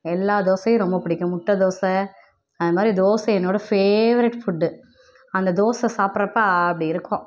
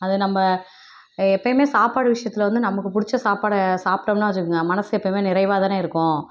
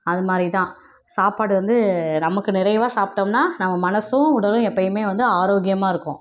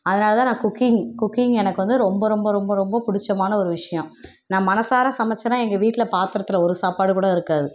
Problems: none marked